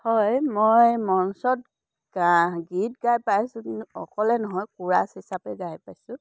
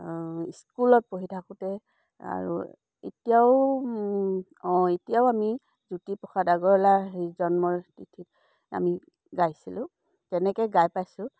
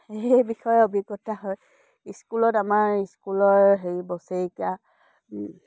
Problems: none marked